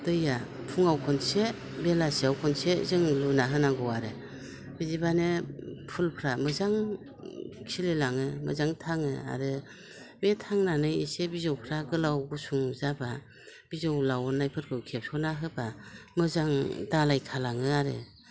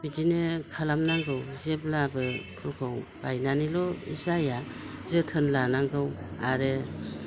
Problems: constant background noise